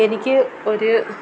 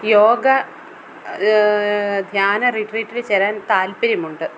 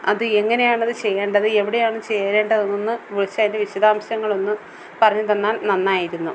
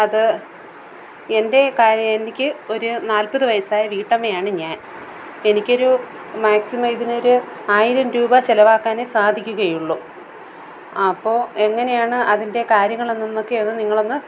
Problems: constant background noise